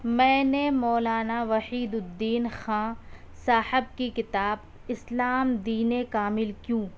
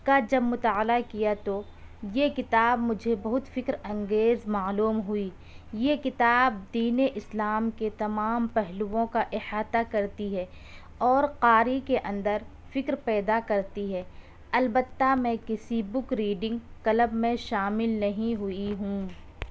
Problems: none marked